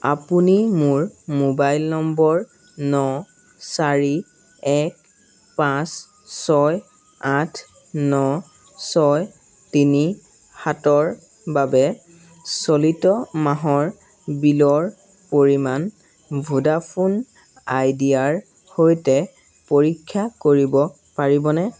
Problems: none marked